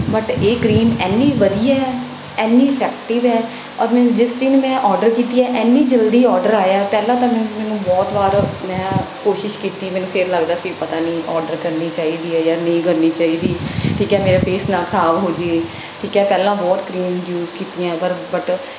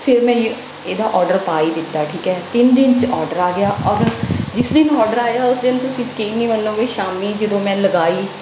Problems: background sounds at intervals